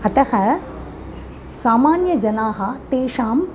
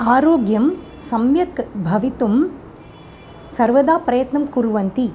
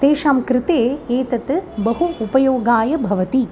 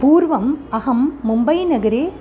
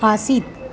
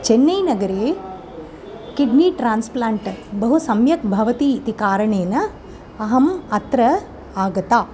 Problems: constant background noise